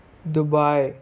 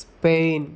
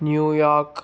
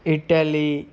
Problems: constant background noise